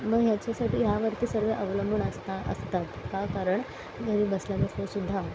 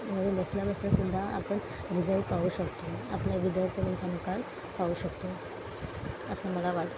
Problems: constant background noise